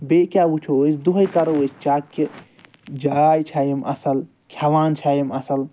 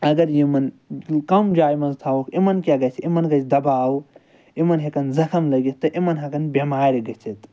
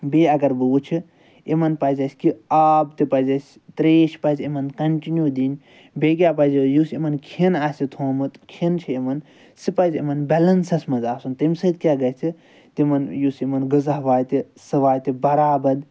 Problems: none marked